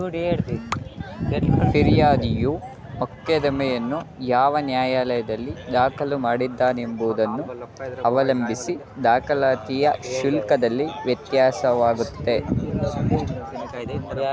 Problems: constant background noise, continuous background conversations